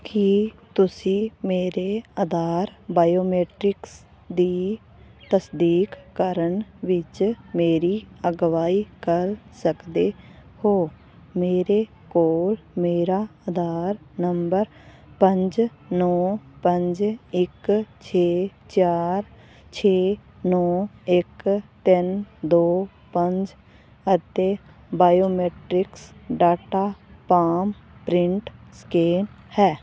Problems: constant background noise